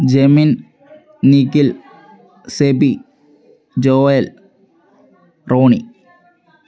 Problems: background sounds at intervals